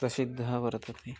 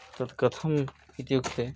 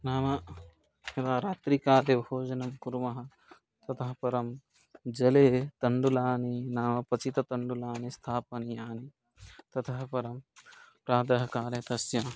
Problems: background sounds at intervals